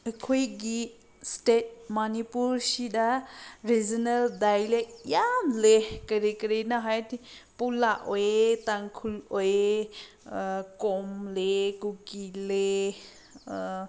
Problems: background sounds at intervals